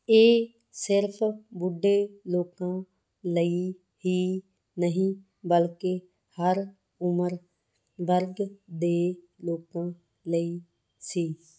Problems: background sounds at intervals